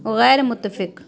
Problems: none marked